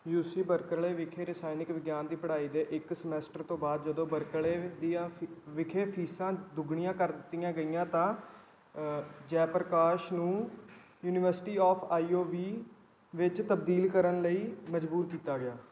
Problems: none marked